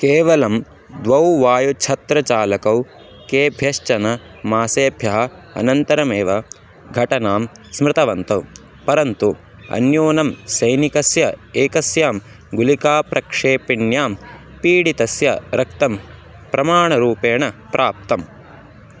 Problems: constant background noise